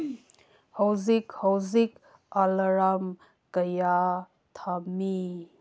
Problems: none marked